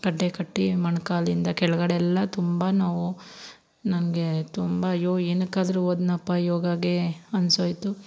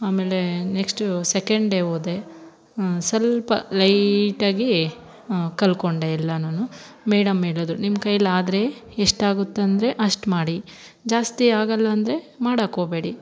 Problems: background sounds at intervals